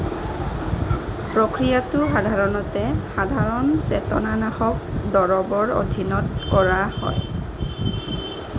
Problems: background sounds at intervals